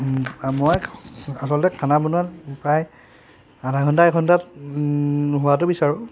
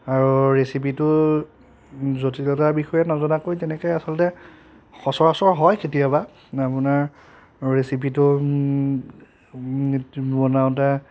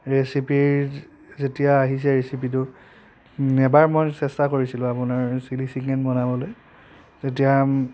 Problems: constant background noise